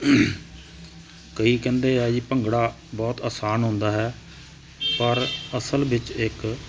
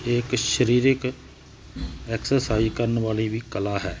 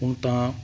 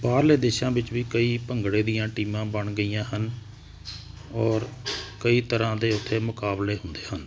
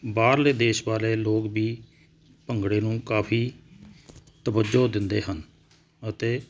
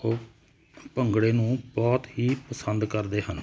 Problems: none marked